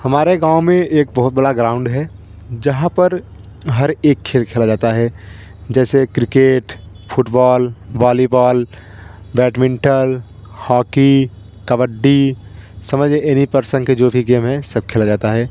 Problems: constant background noise